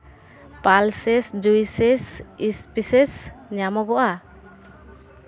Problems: constant background noise, background conversations at intervals